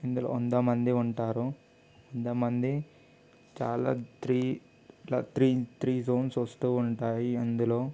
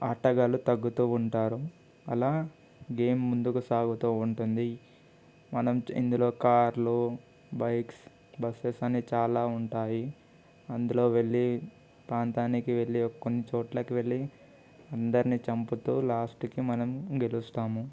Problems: constant background noise